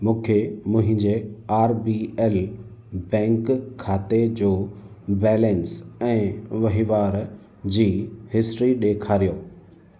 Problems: constant background noise, echo